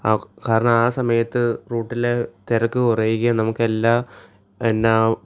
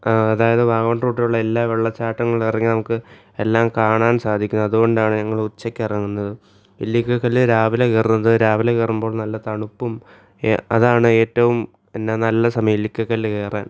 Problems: none marked